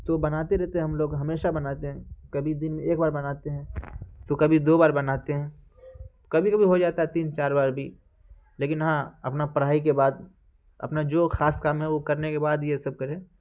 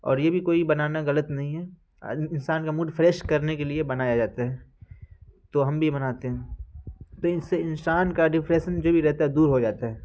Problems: constant background noise